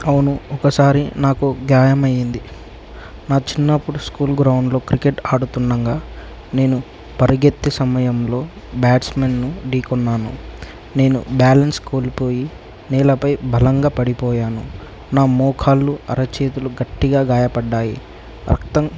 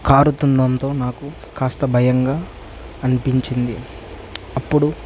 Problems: constant background noise, low volume